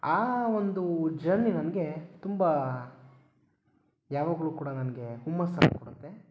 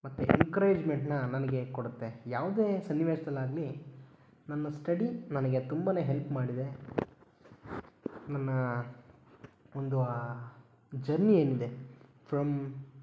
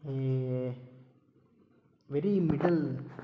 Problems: background sounds at intervals